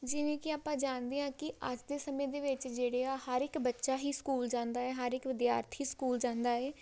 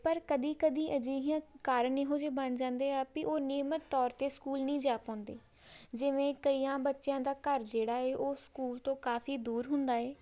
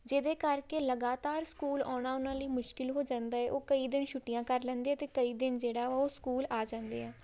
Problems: background sounds at intervals